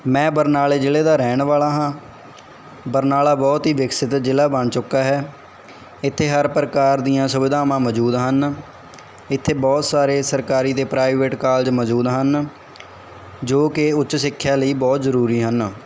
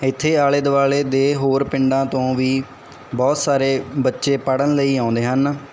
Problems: background conversations at intervals